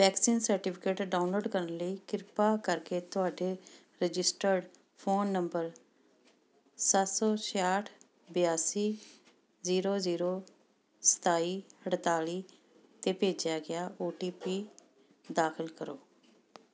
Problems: background sounds at intervals